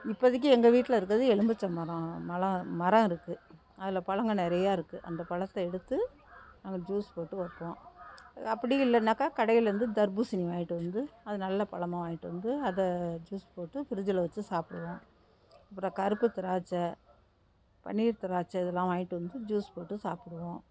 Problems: background sounds at intervals